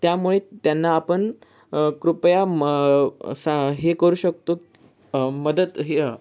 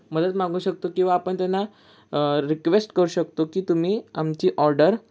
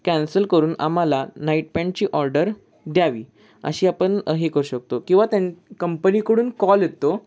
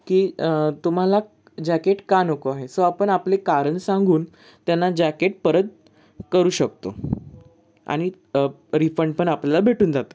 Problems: constant background noise